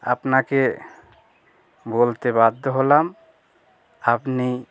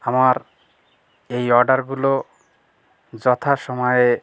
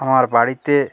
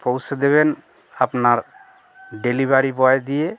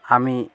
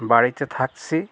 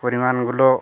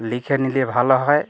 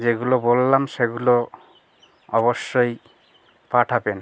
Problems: constant background noise